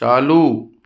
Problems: none marked